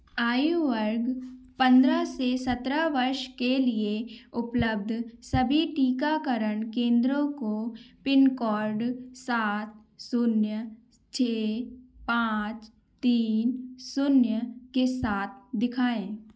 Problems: none marked